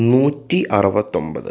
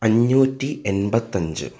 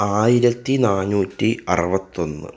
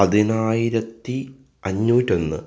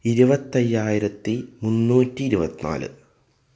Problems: none marked